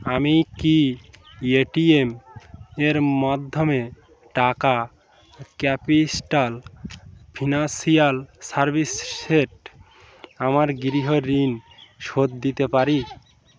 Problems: background sounds at intervals, background conversations at intervals